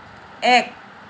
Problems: constant background noise